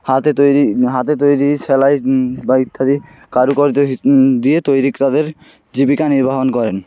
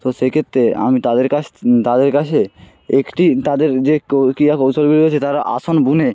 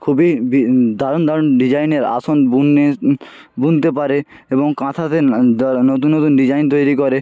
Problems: constant background noise, background conversations at intervals